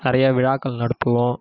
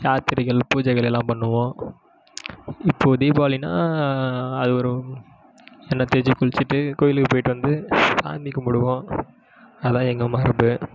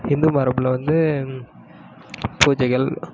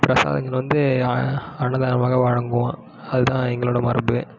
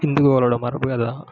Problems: none marked